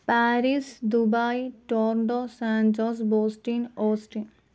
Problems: none marked